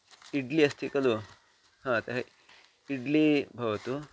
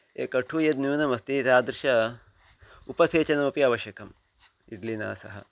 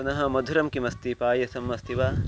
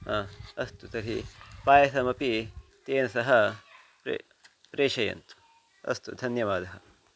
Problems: none marked